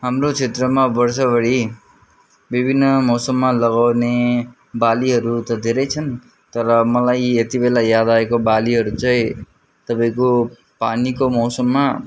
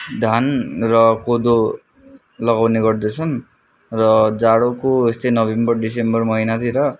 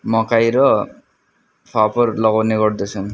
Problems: none marked